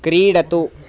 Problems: constant background noise